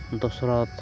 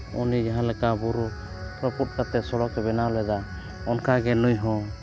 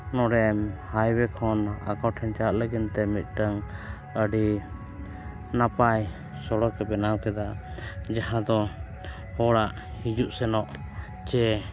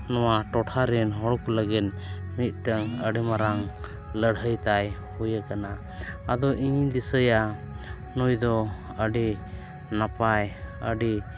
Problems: background sounds at intervals, low volume